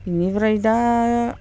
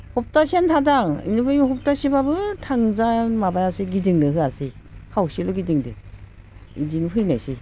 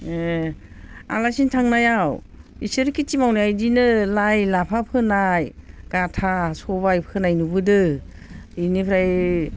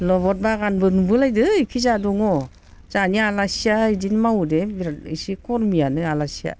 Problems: none marked